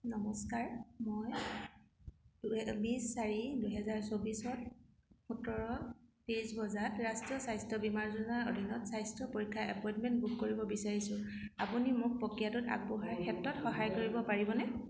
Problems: constant background noise, continuous background conversations